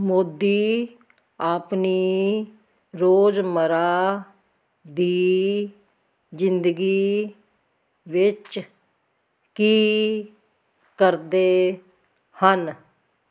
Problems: none marked